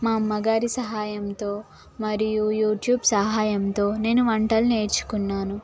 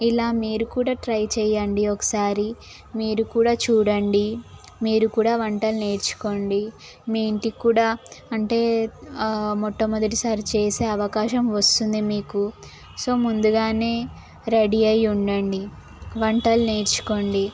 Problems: constant background noise, background conversations at intervals